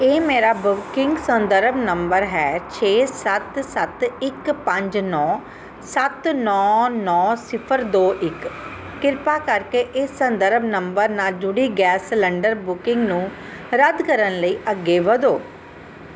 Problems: none marked